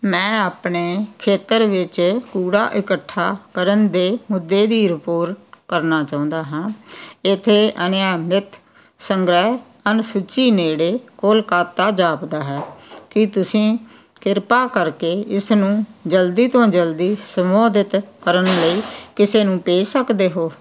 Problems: none marked